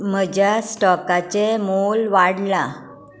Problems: continuous background conversations